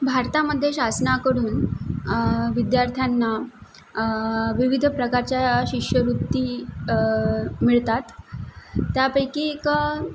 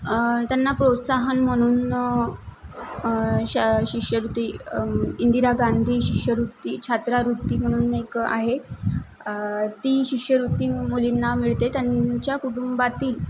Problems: background sounds at intervals